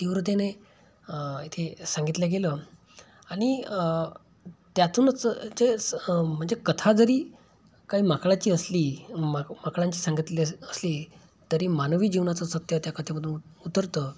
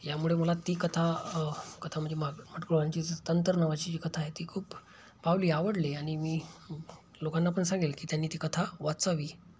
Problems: constant background noise